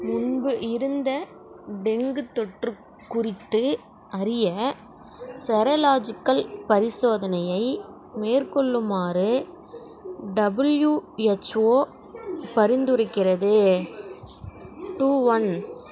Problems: none marked